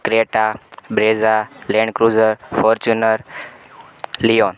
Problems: constant background noise